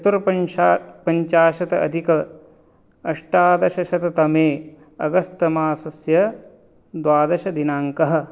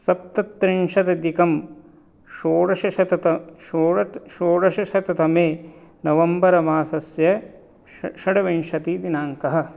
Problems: none marked